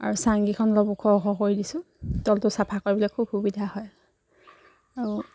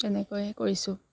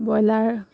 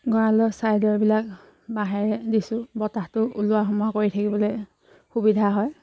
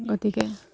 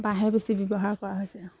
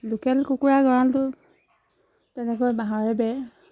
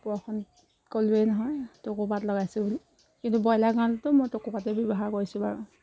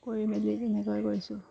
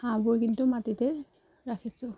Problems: constant background noise